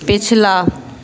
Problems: none marked